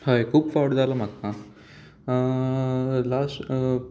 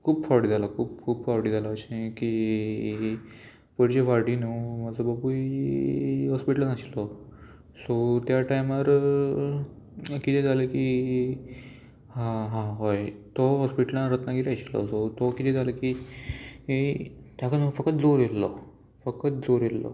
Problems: constant background noise, background conversations at intervals